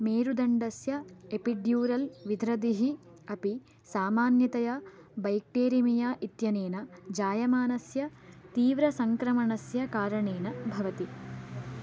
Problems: none marked